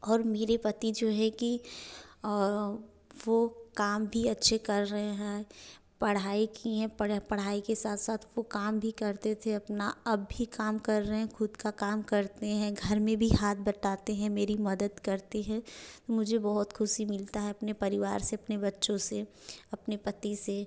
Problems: none marked